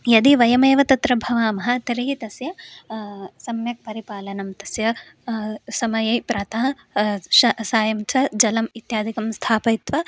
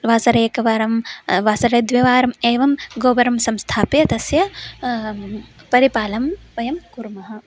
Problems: constant background noise